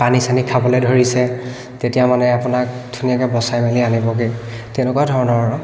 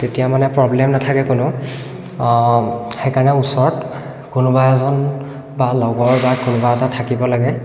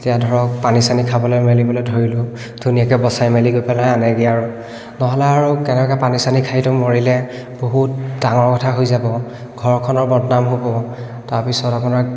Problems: echo